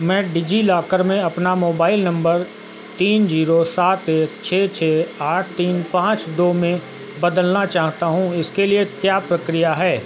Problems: none marked